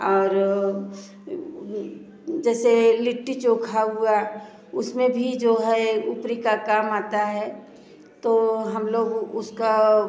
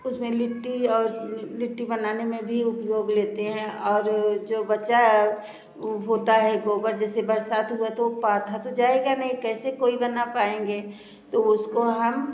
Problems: constant background noise